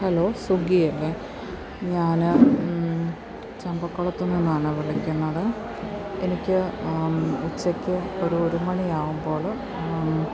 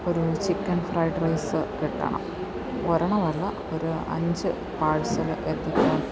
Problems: constant background noise